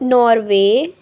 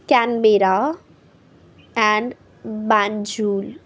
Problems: background sounds at intervals